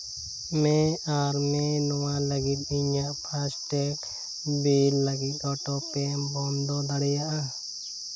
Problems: constant background noise